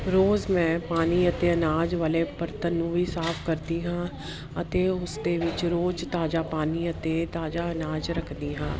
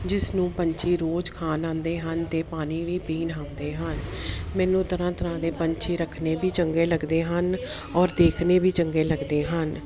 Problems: none marked